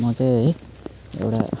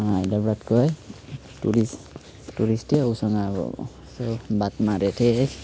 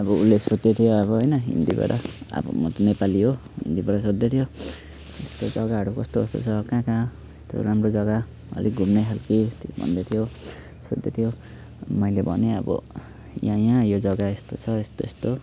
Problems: background sounds at intervals